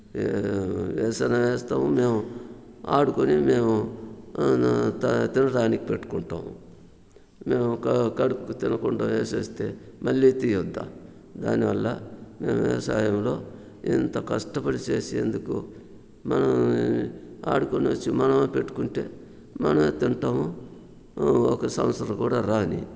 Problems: constant background noise